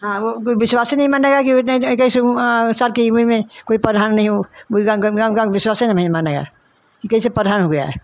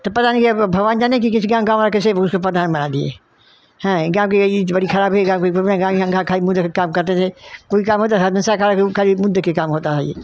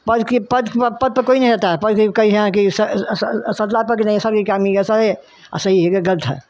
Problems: none marked